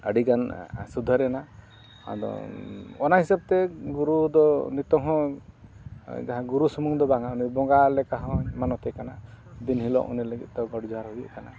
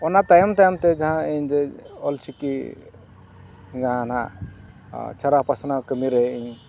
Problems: none marked